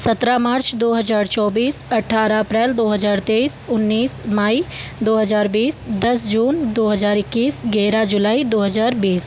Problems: constant background noise